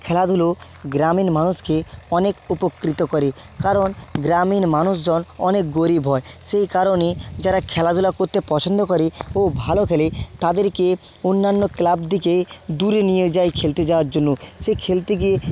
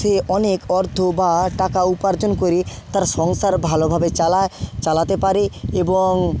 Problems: background sounds at intervals